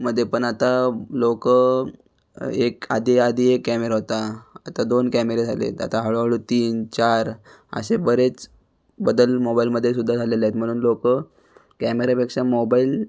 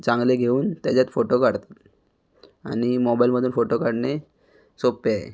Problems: background sounds at intervals